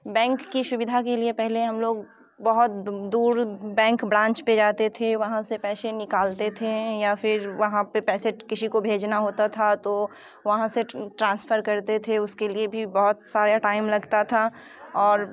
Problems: constant background noise